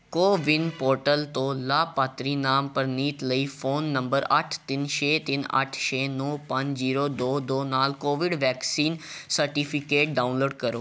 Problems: background sounds at intervals